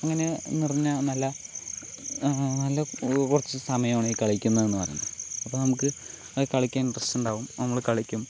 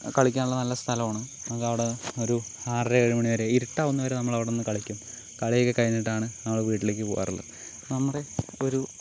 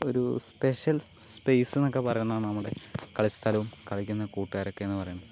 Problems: constant background noise